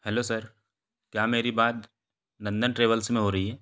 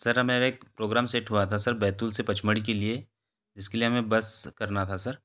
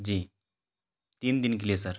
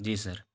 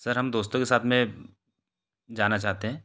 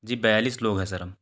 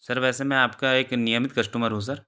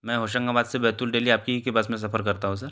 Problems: background conversations at intervals